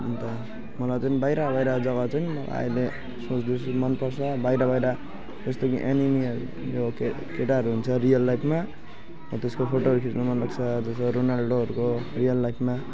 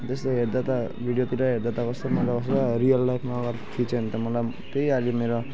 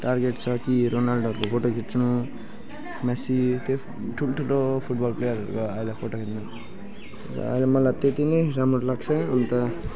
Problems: background sounds at intervals, background conversations at intervals